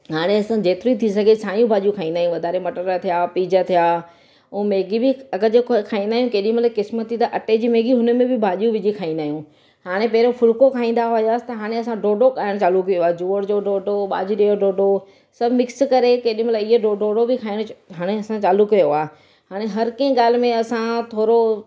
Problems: none marked